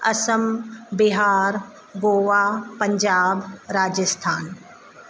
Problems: constant background noise